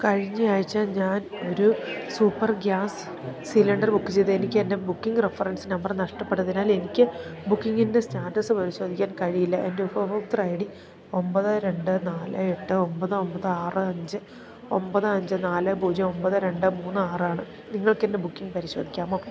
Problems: none marked